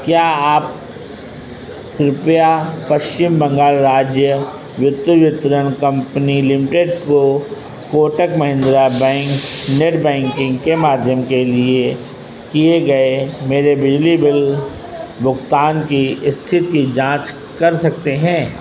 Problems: constant background noise